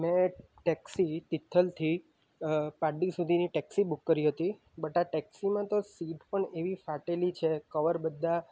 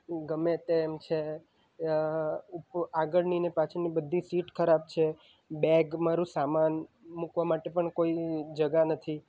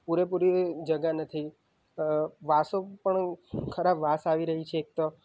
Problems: none marked